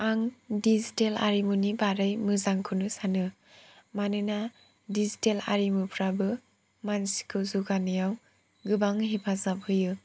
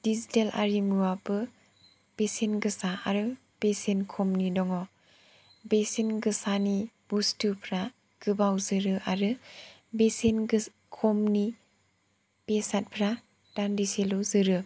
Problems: none marked